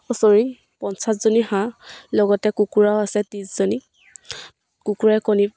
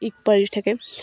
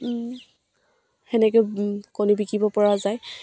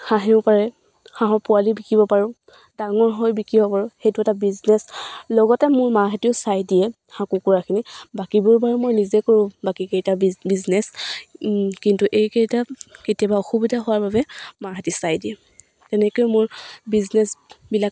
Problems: none marked